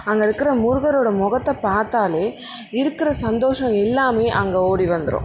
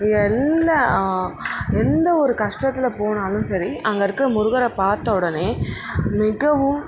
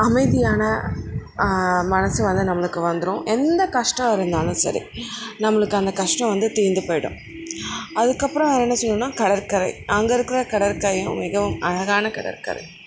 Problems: constant background noise